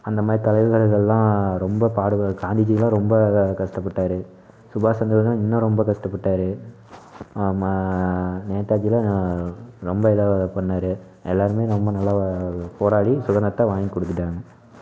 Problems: none marked